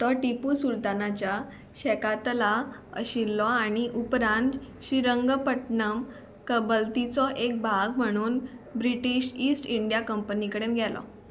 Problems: background sounds at intervals